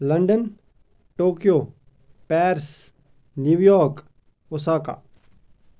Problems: constant background noise